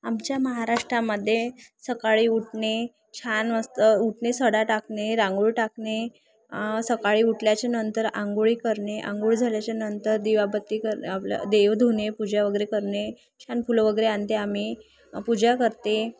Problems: background sounds at intervals